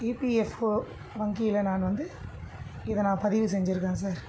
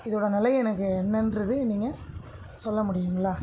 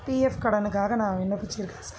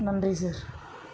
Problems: none marked